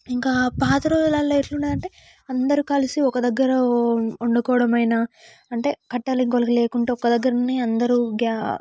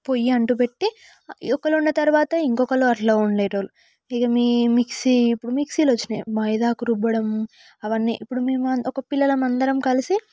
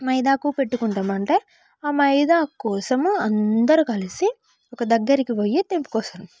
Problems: background sounds at intervals